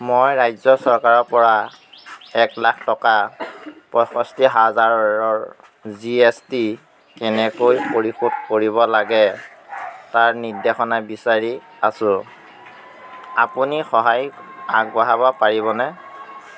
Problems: constant background noise